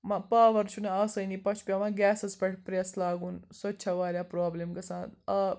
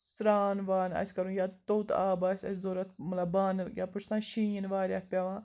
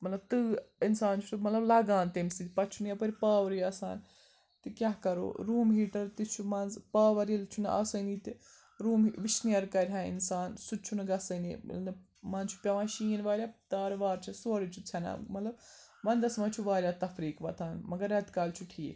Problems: background sounds at intervals